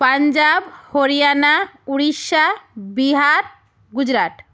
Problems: none marked